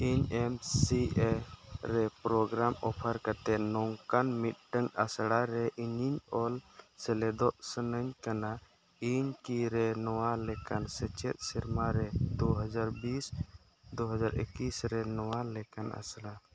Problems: background sounds at intervals